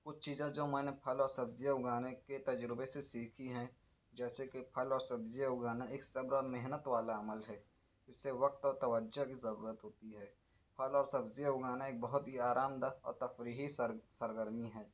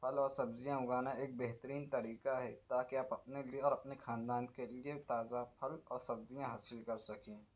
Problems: none marked